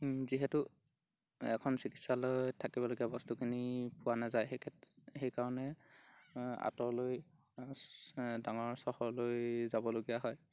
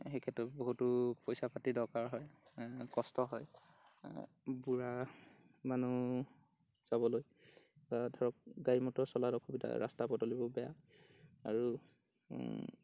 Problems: background sounds at intervals